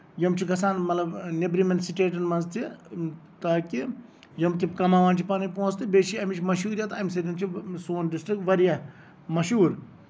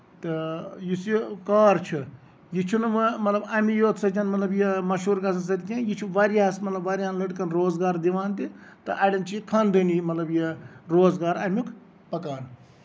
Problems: background sounds at intervals